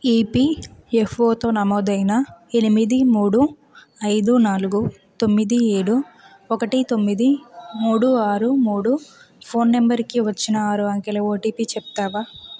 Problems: background sounds at intervals